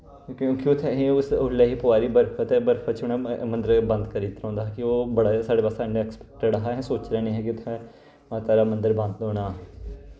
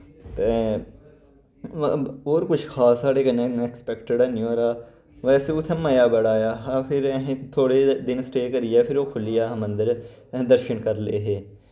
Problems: none marked